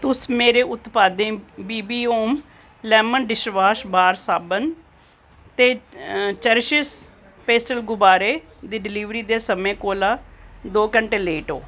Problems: none marked